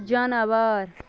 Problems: none marked